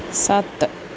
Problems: background sounds at intervals